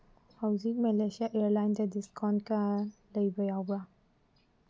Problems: low volume